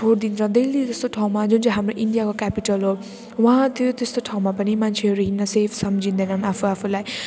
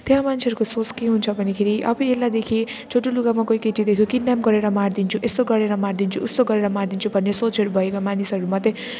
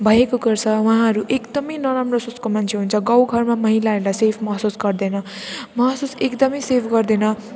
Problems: background sounds at intervals